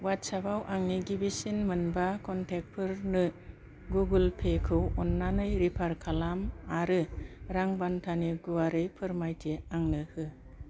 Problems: low volume